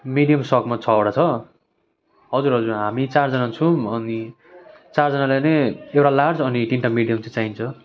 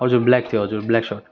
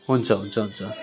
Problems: continuous background conversations